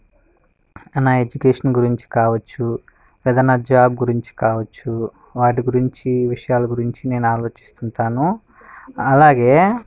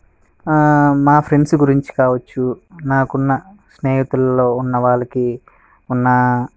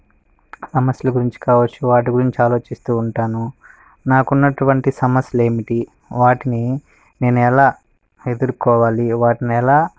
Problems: background sounds at intervals